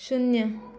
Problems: background conversations at intervals